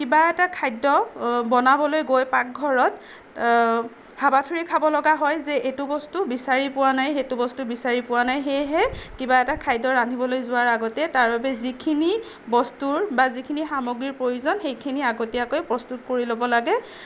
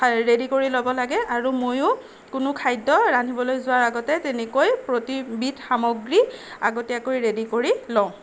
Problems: background sounds at intervals, background conversations at intervals